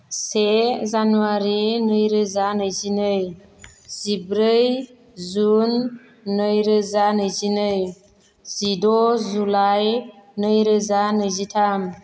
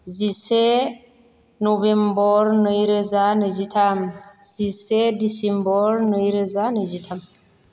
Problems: none marked